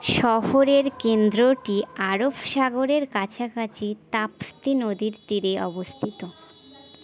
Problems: low volume